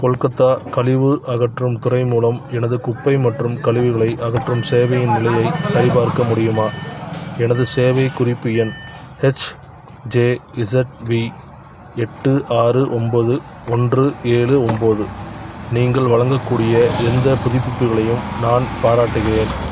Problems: background sounds at intervals, background conversations at intervals